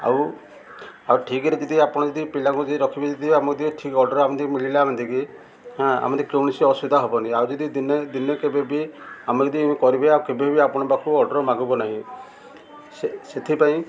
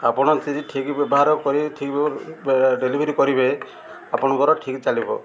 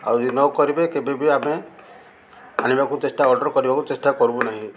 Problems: constant background noise, continuous background conversations